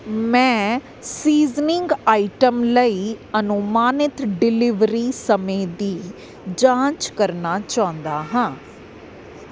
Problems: none marked